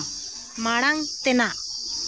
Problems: none marked